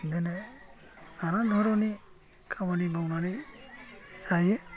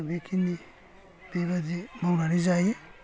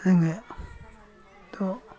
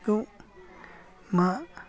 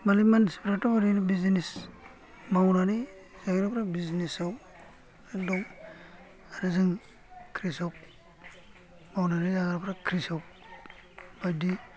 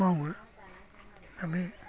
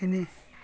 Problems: low volume